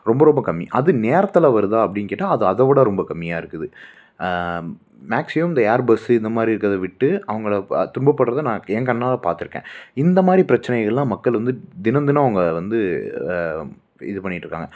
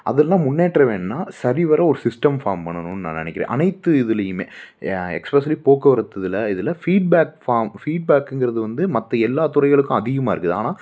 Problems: none marked